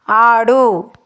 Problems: none marked